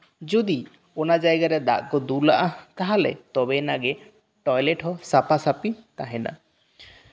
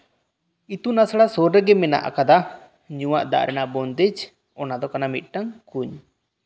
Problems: none marked